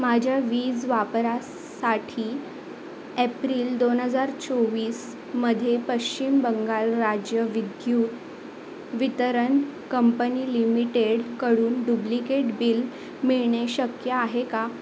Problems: constant background noise, background conversations at intervals